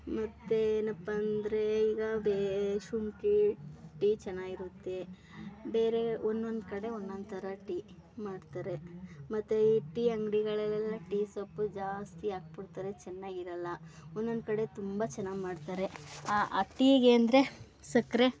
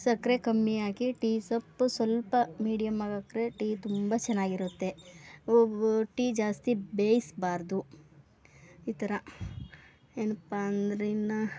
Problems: background sounds at intervals